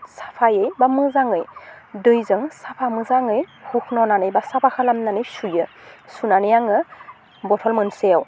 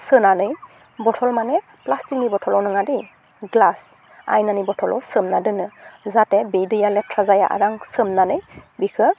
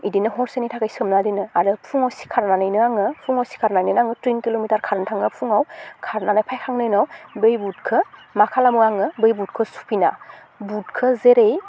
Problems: constant background noise